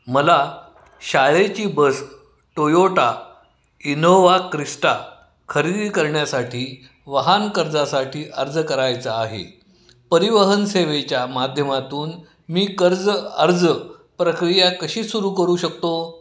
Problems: none marked